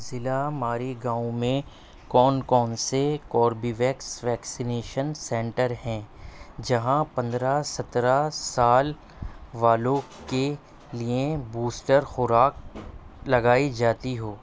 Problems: constant background noise